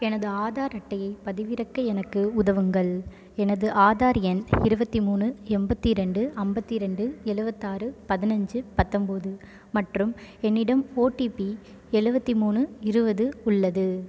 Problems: none marked